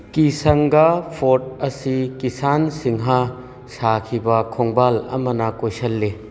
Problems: background sounds at intervals